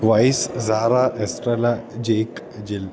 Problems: none marked